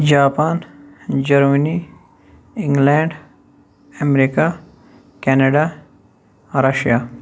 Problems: none marked